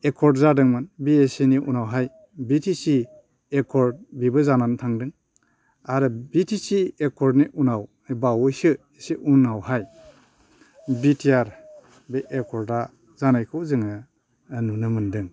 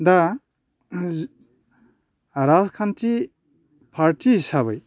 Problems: none marked